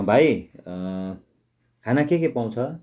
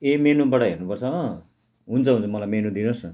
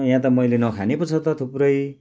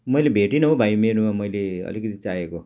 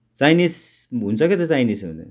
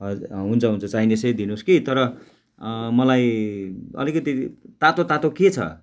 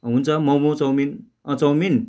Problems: background sounds at intervals